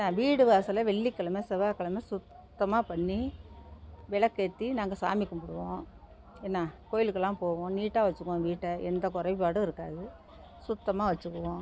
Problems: background sounds at intervals